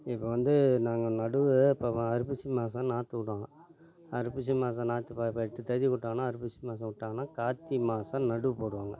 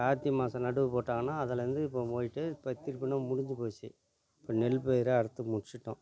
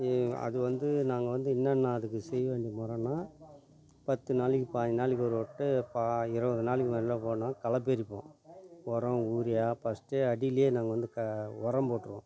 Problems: none marked